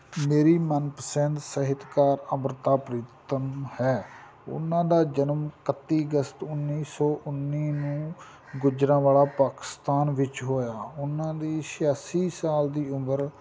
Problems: constant background noise